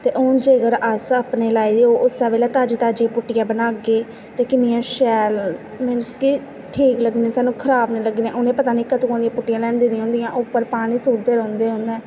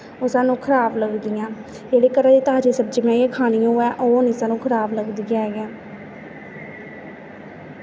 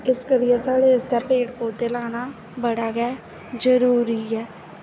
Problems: constant background noise